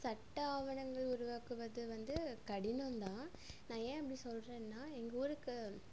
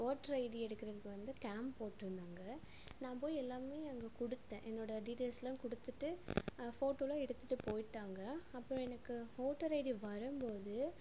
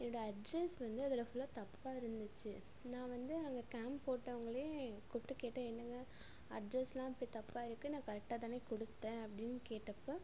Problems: constant background noise